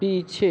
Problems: continuous background conversations